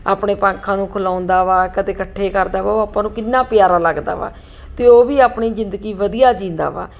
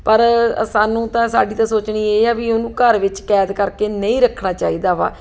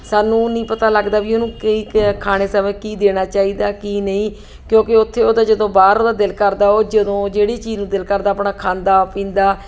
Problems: none marked